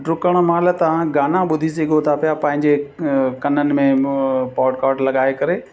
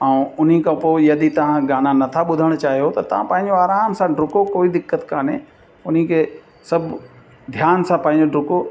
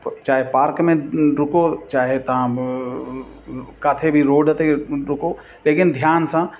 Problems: constant background noise, echo